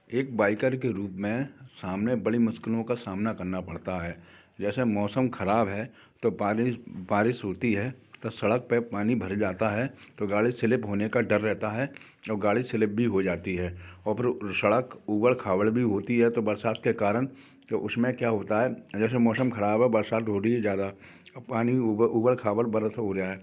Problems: none marked